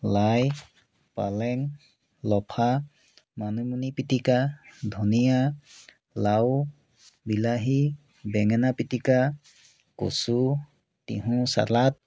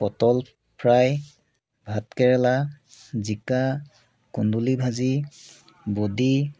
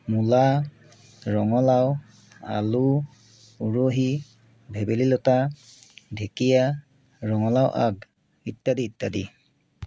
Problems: none marked